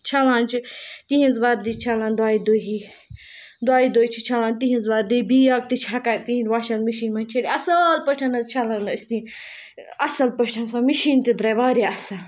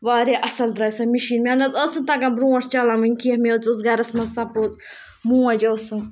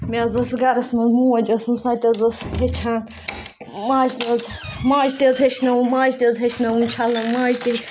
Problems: background sounds at intervals